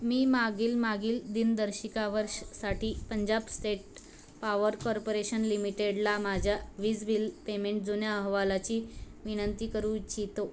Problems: none marked